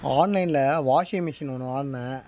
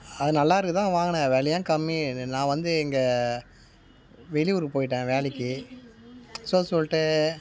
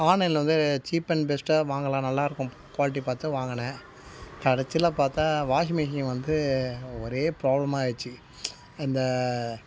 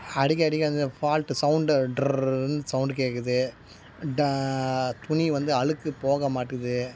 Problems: none marked